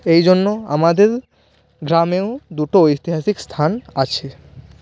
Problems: constant background noise